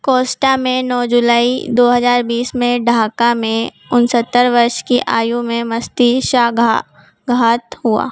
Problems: constant background noise